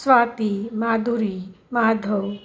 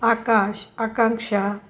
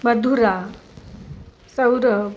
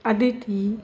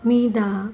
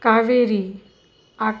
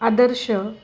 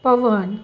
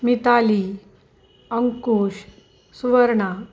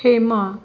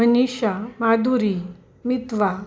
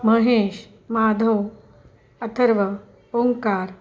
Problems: constant background noise, background conversations at intervals